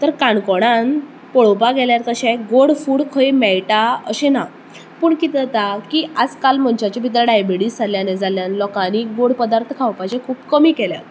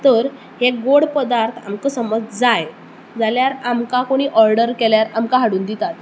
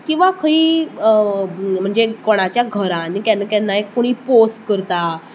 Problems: constant background noise